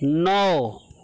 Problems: constant background noise